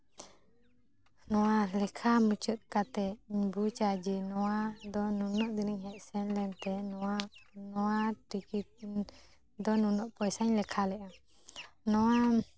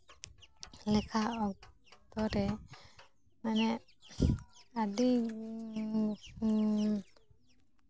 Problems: background sounds at intervals